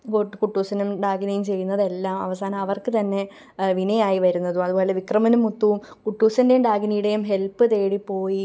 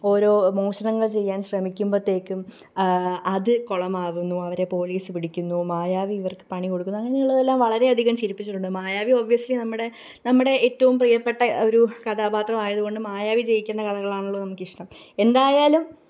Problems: none marked